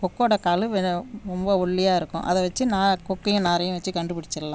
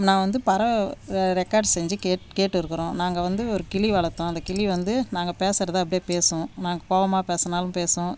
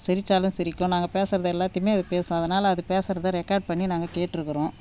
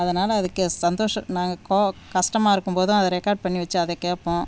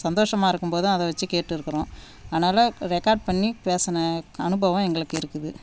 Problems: none marked